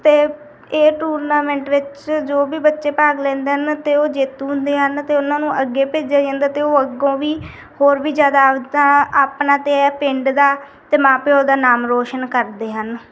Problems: background sounds at intervals